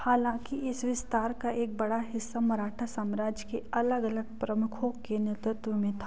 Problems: low volume